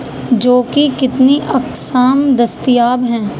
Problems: constant background noise